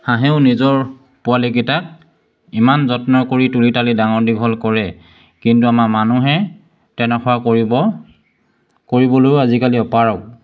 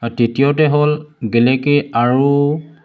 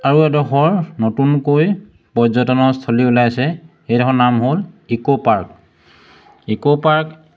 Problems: constant background noise